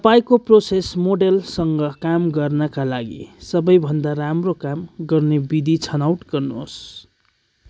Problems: none marked